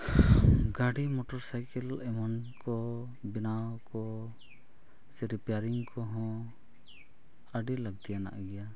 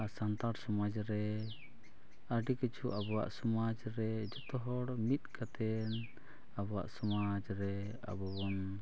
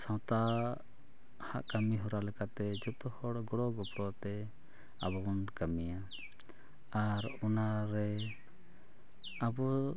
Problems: background sounds at intervals